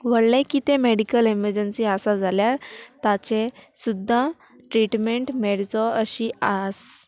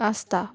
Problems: none marked